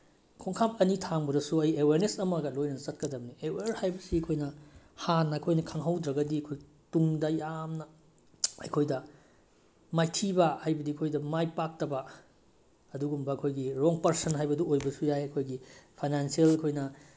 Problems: background sounds at intervals